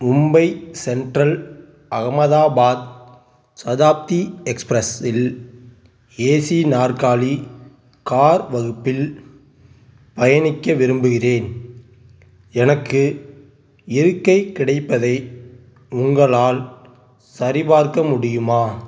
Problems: background sounds at intervals